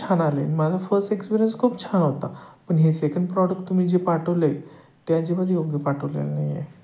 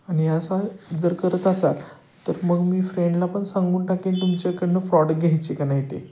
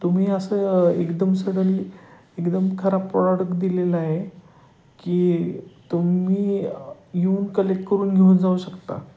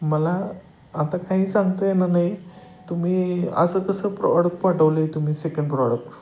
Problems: none marked